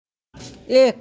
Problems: none marked